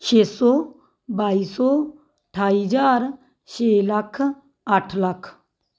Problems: none marked